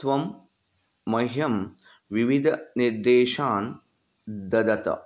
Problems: none marked